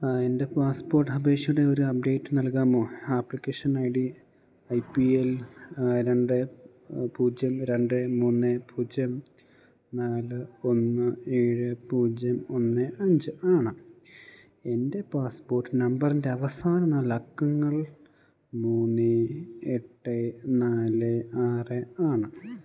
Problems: background sounds at intervals